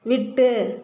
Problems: none marked